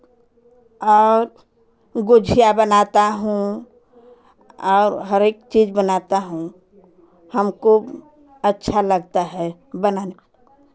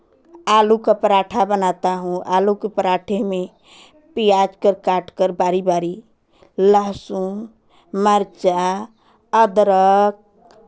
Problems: constant background noise